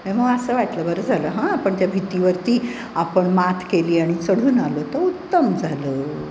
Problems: constant background noise